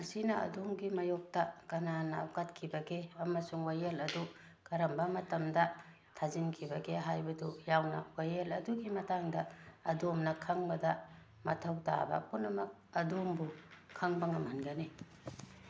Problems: background sounds at intervals